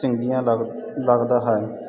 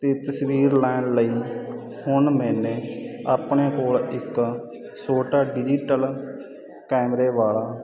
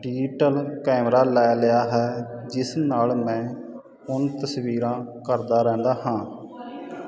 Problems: constant background noise